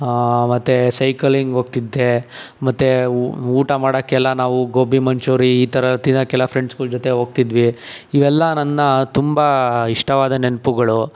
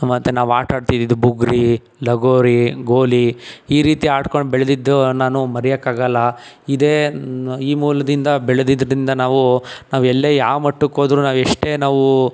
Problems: none marked